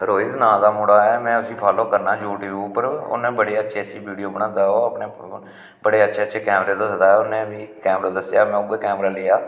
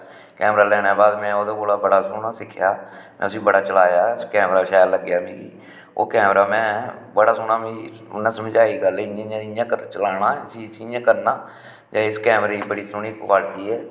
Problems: background sounds at intervals, echo